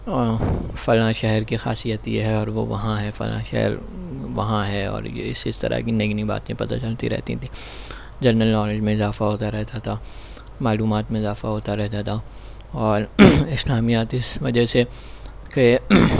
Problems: none marked